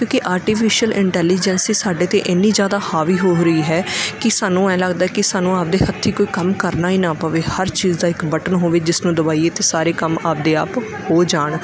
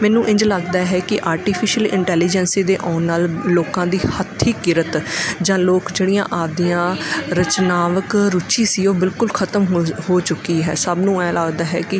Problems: background sounds at intervals